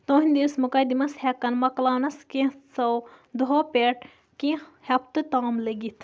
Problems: background sounds at intervals